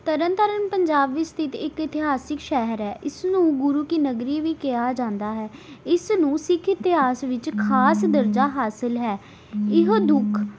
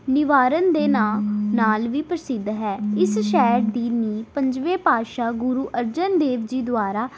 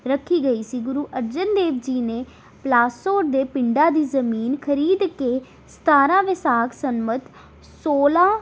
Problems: none marked